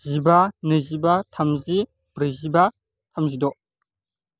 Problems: constant background noise